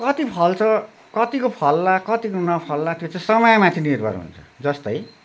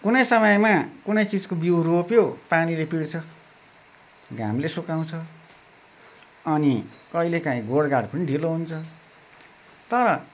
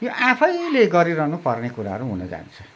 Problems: constant background noise